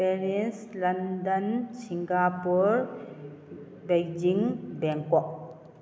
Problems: background sounds at intervals